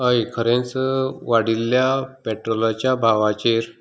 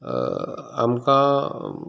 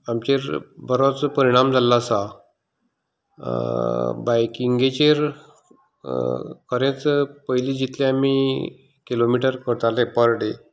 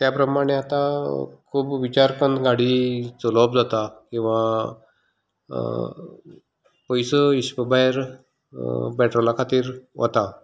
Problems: background sounds at intervals